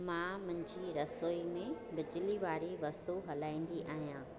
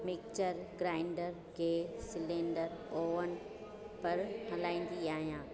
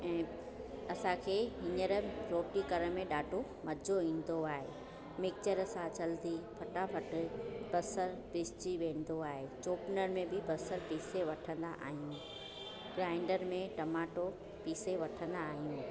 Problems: constant background noise